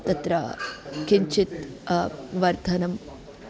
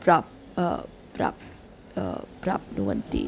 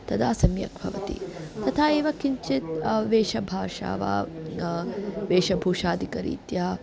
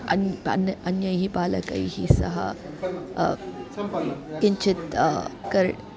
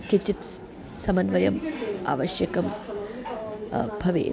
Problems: continuous background conversations